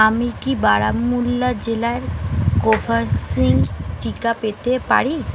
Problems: constant background noise